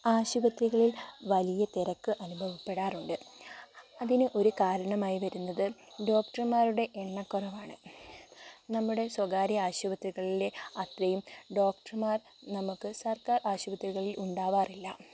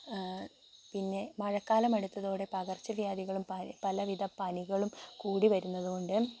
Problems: constant background noise